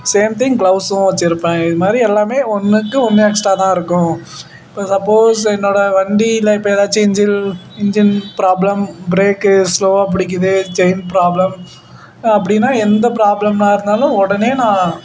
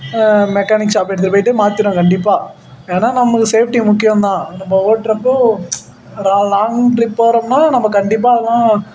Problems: constant background noise